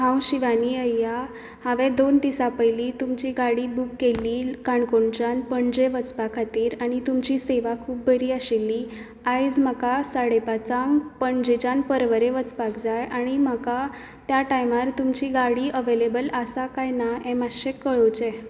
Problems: background sounds at intervals